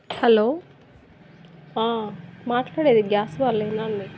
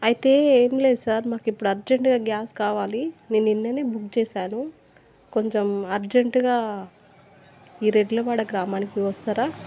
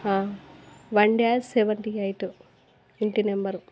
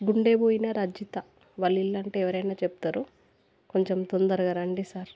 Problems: none marked